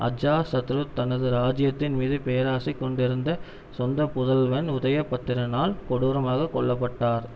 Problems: none marked